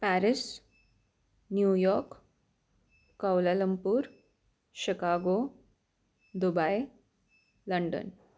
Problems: constant background noise